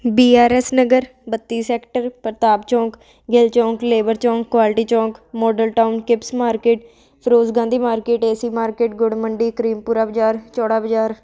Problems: constant background noise